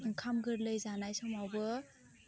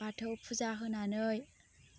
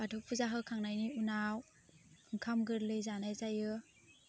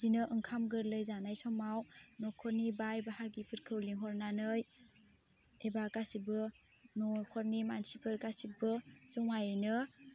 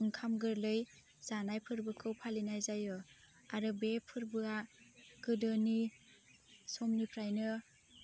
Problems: constant background noise